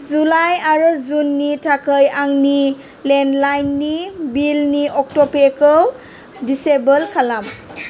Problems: constant background noise